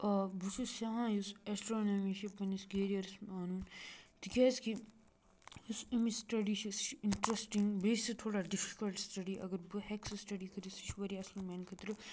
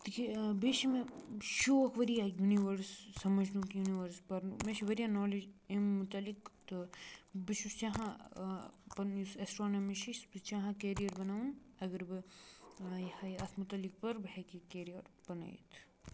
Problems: background sounds at intervals, low volume